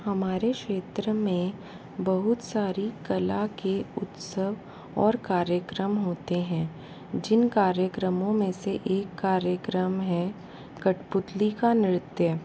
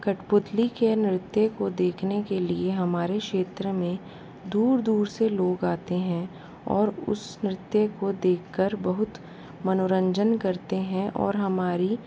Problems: constant background noise